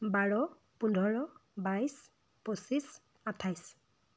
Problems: constant background noise